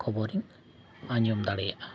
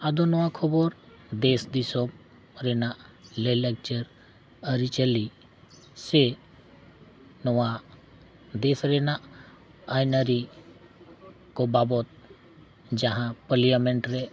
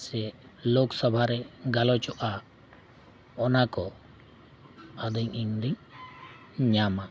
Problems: none marked